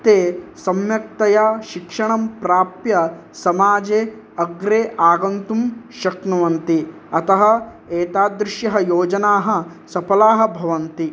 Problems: none marked